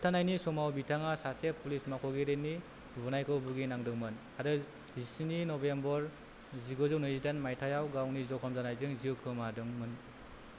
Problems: none marked